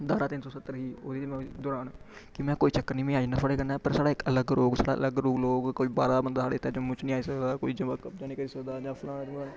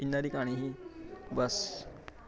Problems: constant background noise, background conversations at intervals, low volume